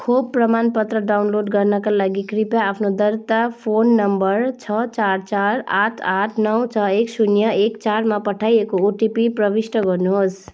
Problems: background sounds at intervals